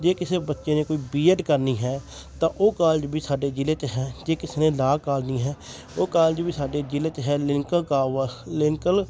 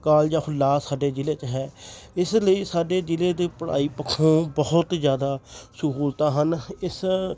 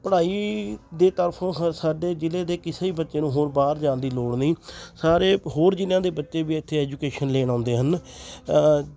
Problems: constant background noise, continuous background conversations